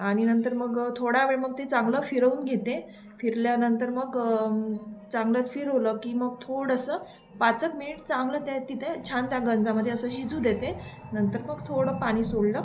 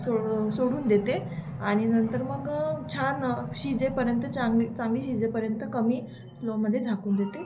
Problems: constant background noise